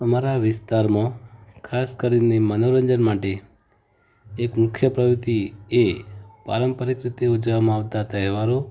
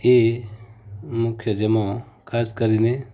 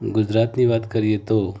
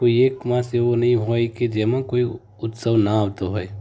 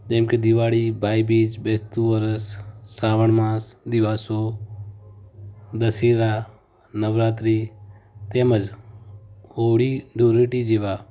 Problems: background sounds at intervals